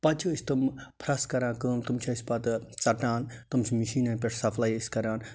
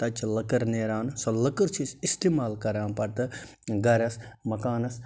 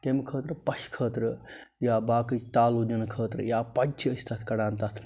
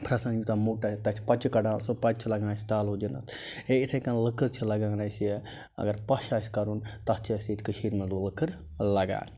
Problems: constant background noise